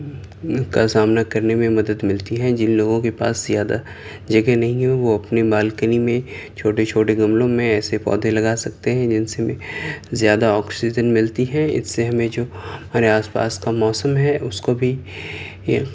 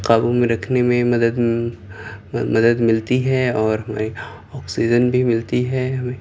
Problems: constant background noise